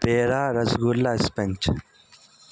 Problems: constant background noise